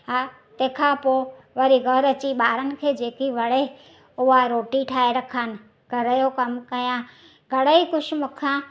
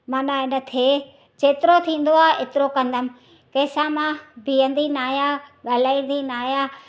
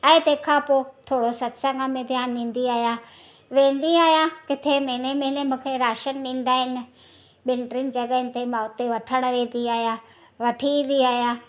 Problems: none marked